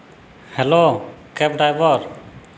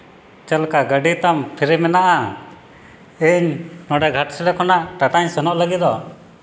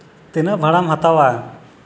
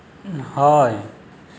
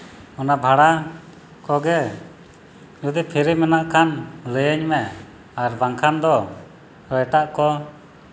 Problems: background sounds at intervals